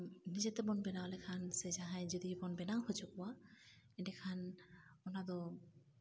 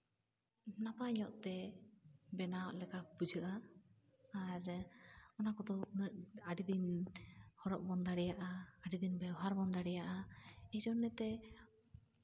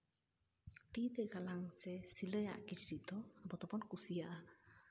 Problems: background sounds at intervals, low volume